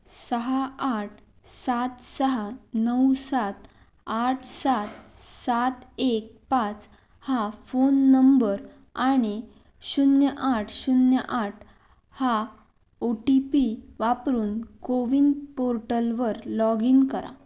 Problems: none marked